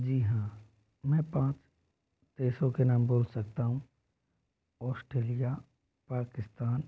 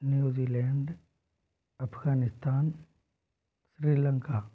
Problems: low volume